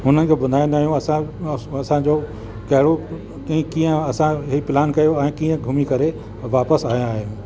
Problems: constant background noise, echo